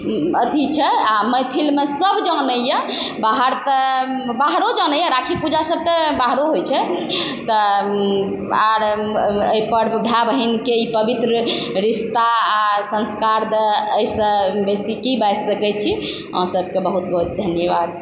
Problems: constant background noise